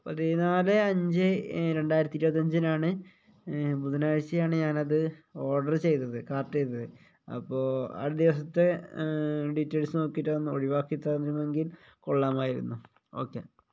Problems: none marked